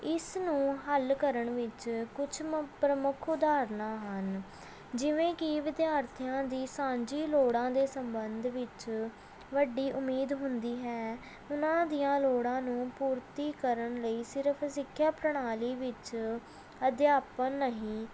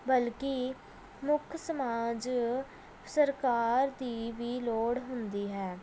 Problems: none marked